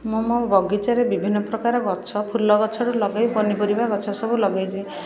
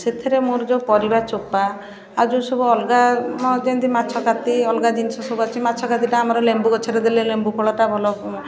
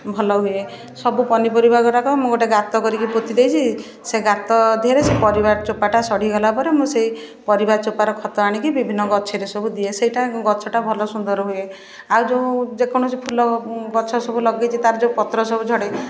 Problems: background sounds at intervals, continuous background conversations